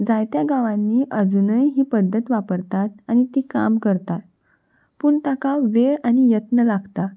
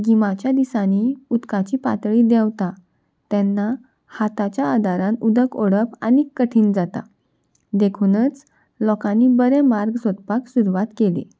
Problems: none marked